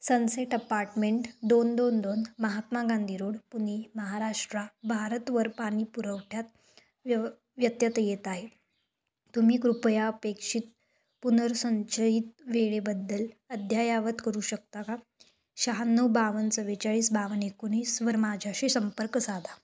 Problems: constant background noise